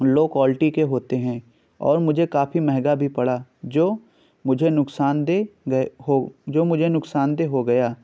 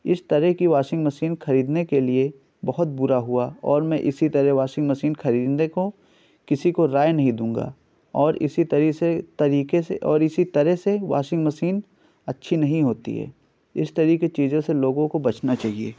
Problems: none marked